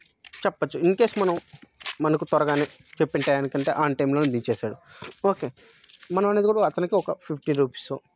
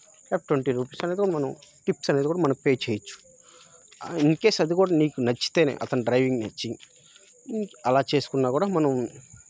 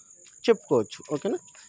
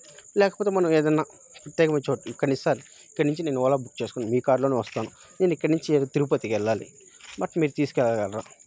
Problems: background sounds at intervals